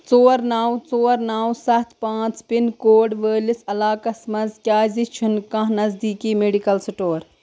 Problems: constant background noise